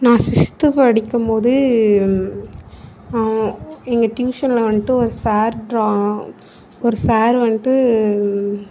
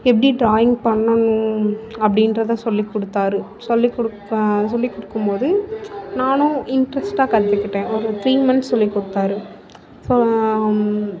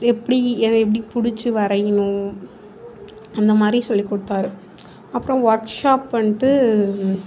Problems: constant background noise